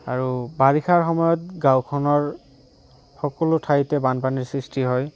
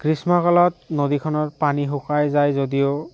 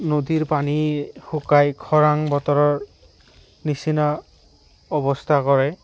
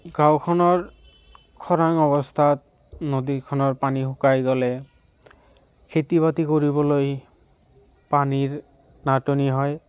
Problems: none marked